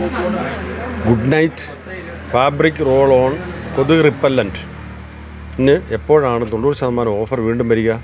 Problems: constant background noise, background conversations at intervals